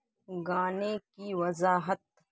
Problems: background sounds at intervals